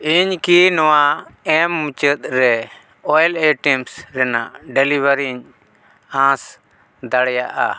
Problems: none marked